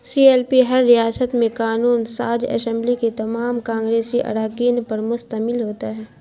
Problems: constant background noise